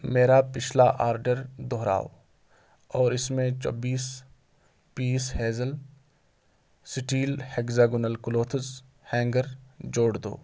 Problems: constant background noise